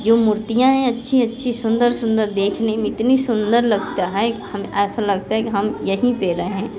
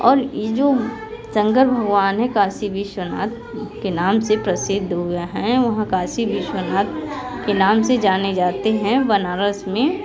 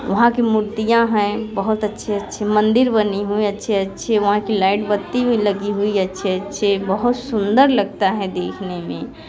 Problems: background sounds at intervals, continuous background conversations